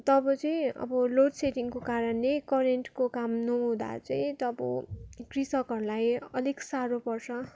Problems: background sounds at intervals